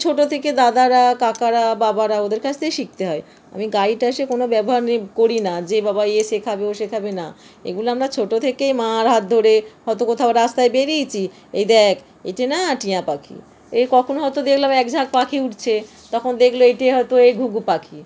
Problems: constant background noise